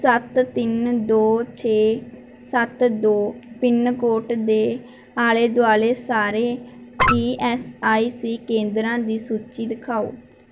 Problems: background sounds at intervals